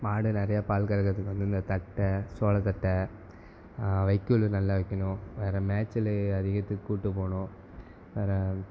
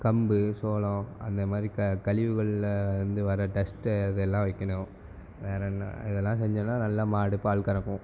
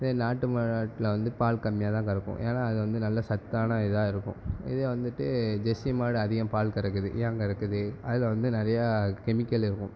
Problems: background sounds at intervals